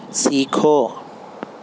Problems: constant background noise